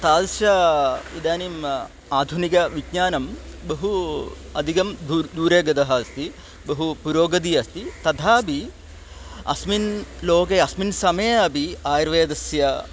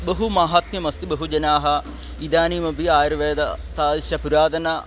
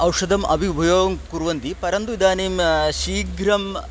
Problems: none marked